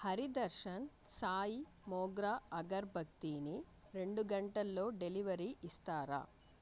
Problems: low volume